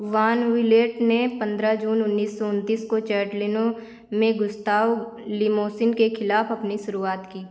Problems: constant background noise